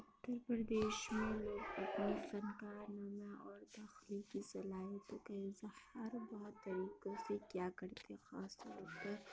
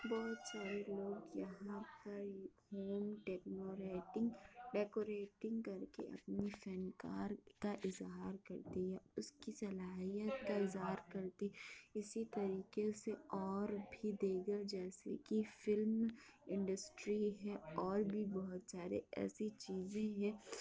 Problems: constant background noise